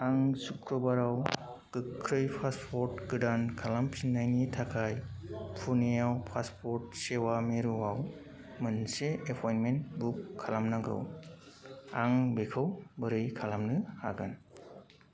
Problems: constant background noise